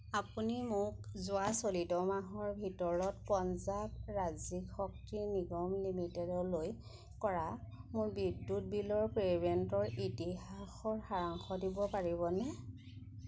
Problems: constant background noise